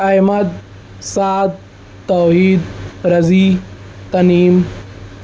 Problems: constant background noise